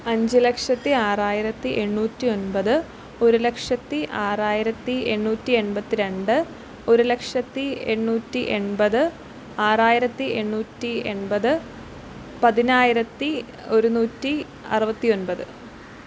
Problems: none marked